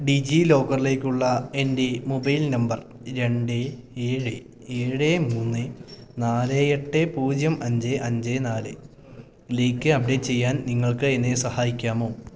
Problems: none marked